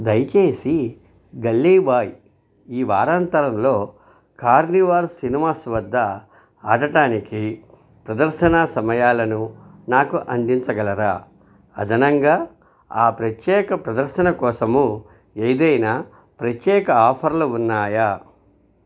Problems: none marked